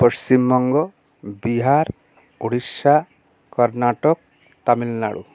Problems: none marked